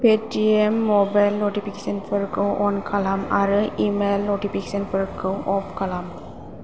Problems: constant background noise